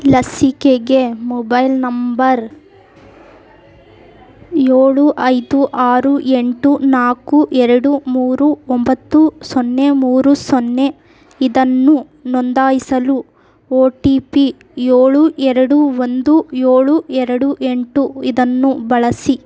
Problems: none marked